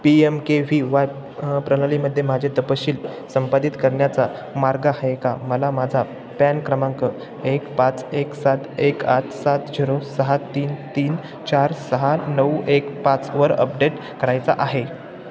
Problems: none marked